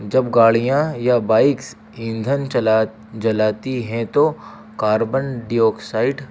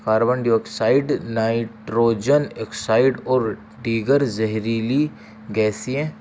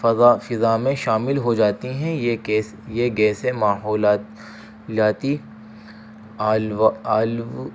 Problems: constant background noise